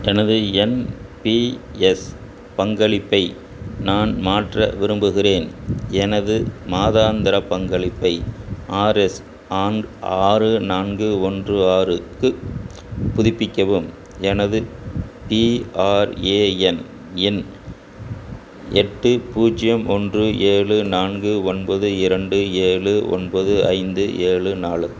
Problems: constant background noise